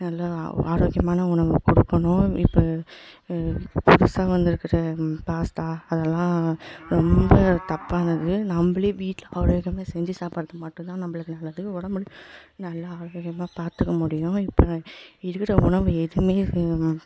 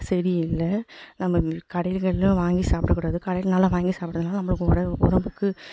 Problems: background sounds at intervals, echo